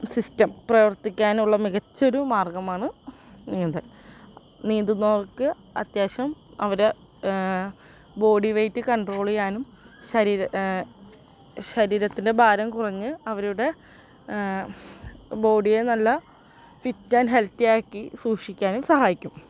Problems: constant background noise